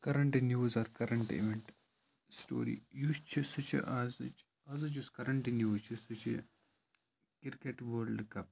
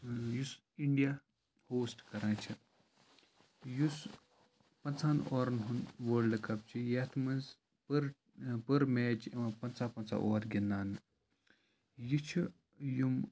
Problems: constant background noise, low volume